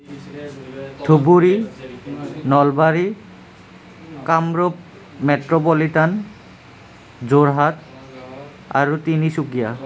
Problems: constant background noise